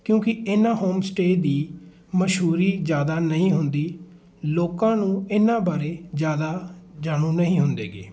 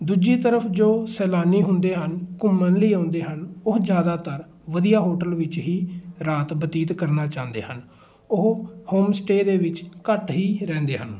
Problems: background sounds at intervals, continuous background conversations